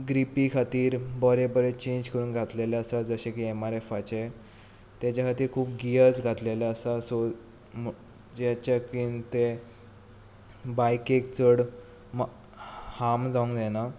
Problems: background sounds at intervals